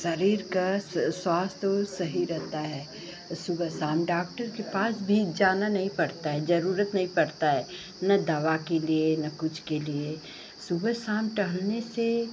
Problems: none marked